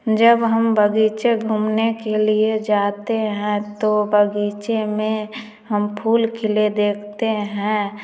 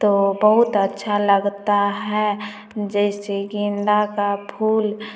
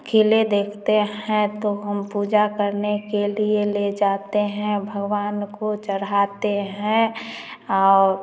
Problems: background sounds at intervals, continuous background conversations, echo